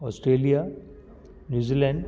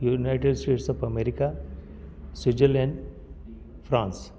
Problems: constant background noise, echo